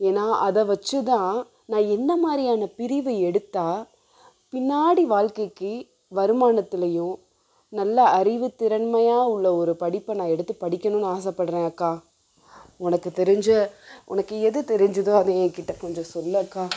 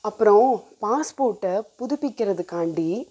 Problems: none marked